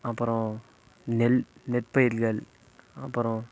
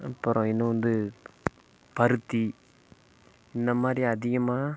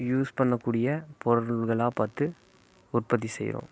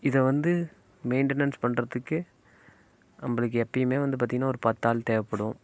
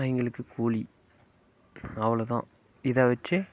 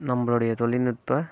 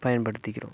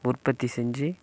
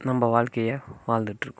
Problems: constant background noise